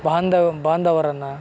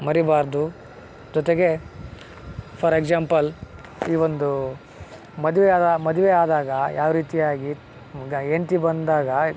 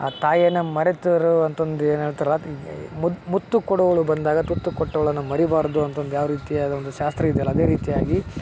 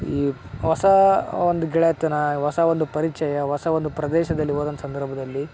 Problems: background sounds at intervals